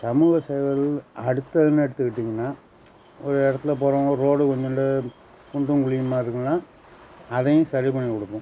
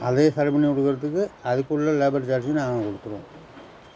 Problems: constant background noise